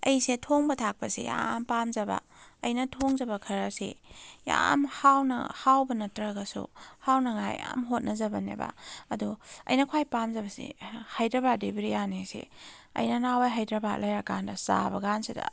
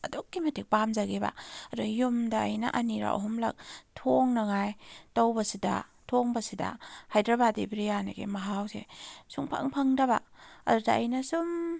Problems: none marked